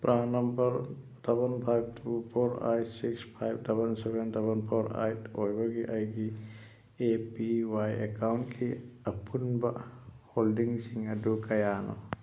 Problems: low volume